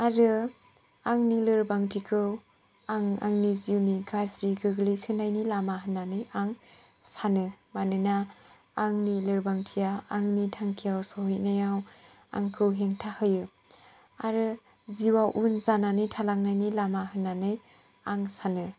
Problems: low volume